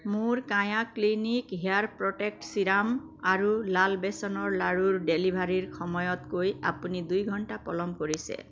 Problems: constant background noise